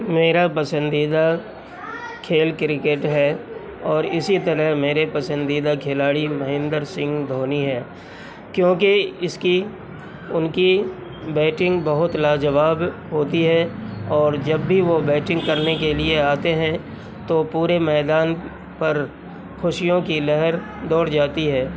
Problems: constant background noise